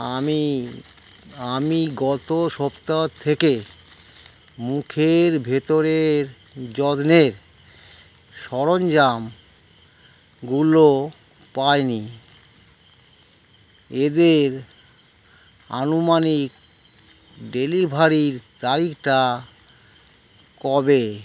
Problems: none marked